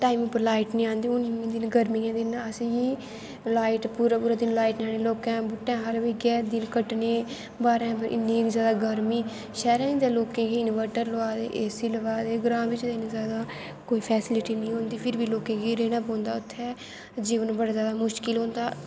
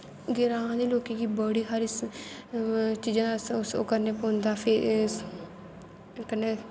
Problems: constant background noise